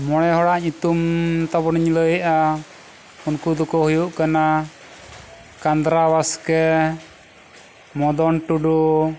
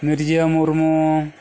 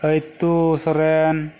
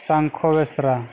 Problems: constant background noise